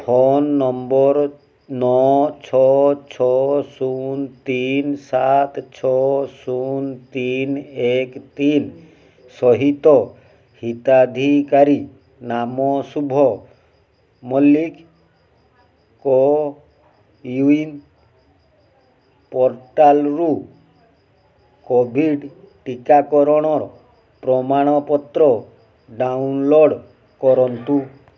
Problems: background sounds at intervals